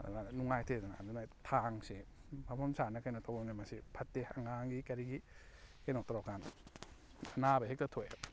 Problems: background sounds at intervals